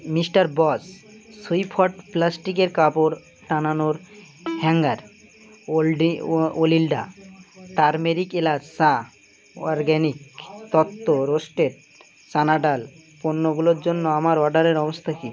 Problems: background sounds at intervals